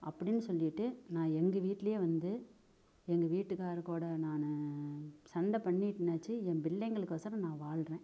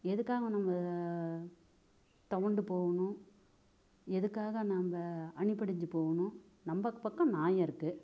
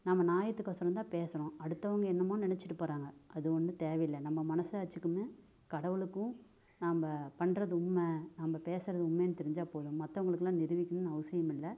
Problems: low volume